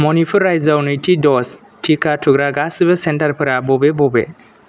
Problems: none marked